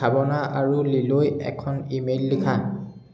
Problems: echo